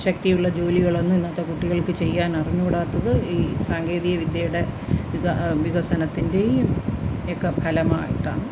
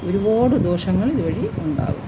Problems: none marked